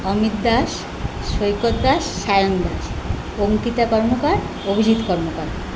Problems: none marked